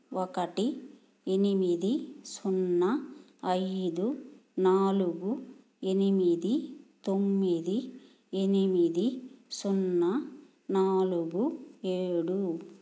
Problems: none marked